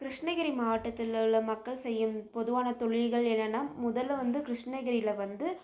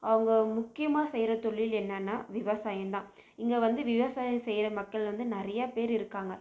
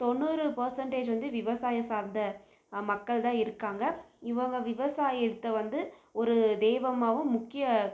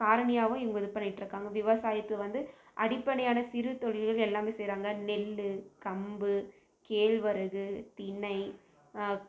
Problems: none marked